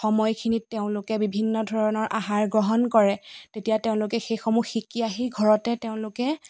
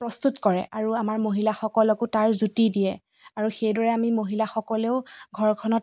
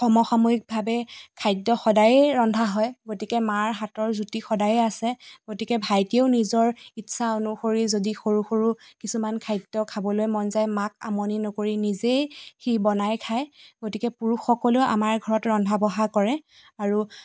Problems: constant background noise